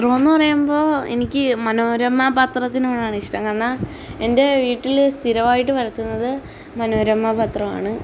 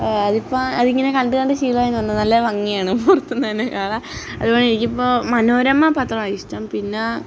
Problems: none marked